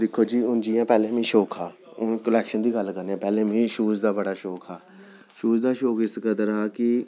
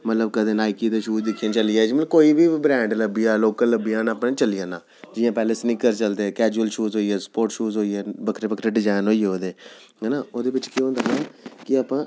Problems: none marked